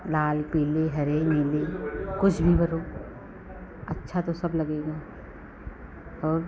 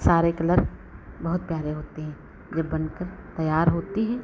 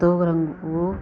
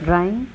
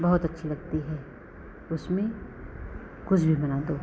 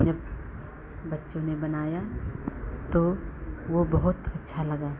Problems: constant background noise